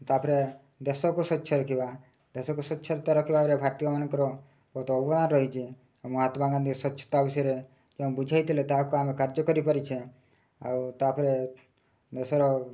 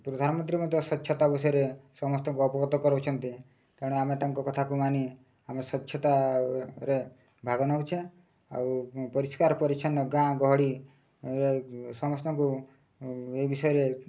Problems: low volume